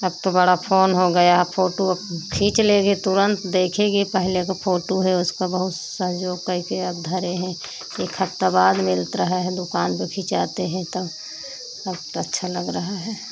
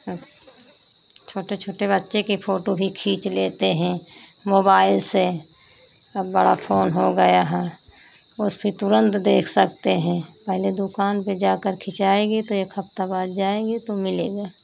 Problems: constant background noise